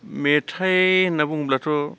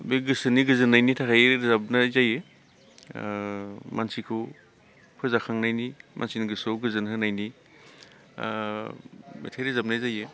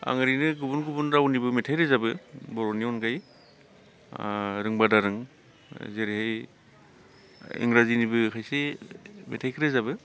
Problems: constant background noise